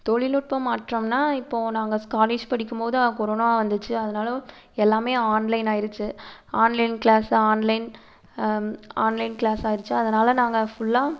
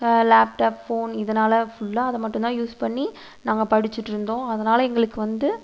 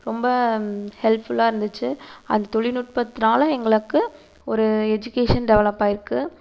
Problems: constant background noise